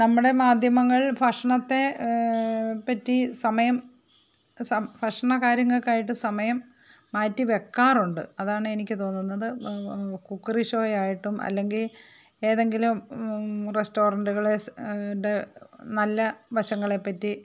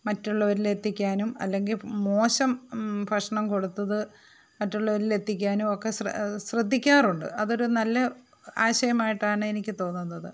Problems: none marked